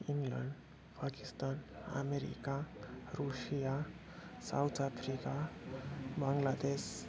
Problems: constant background noise, low volume